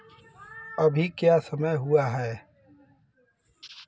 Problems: constant background noise